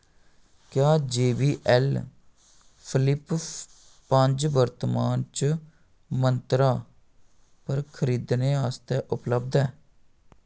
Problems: none marked